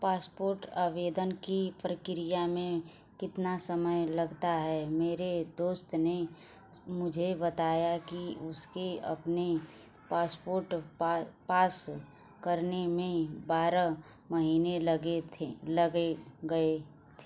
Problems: background sounds at intervals